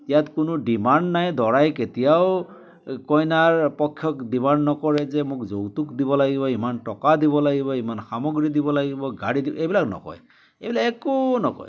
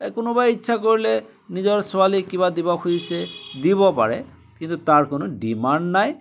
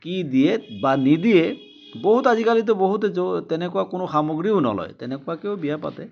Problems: constant background noise, background conversations at intervals